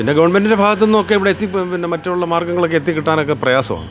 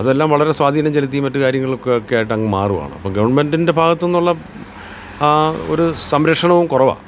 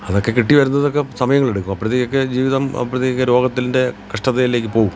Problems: none marked